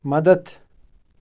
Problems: background sounds at intervals